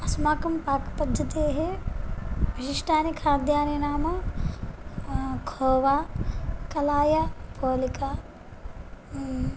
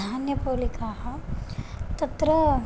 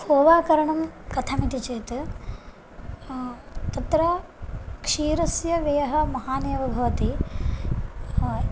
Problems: none marked